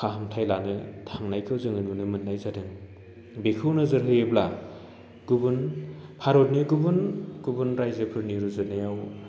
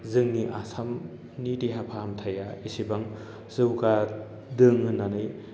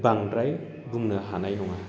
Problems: low volume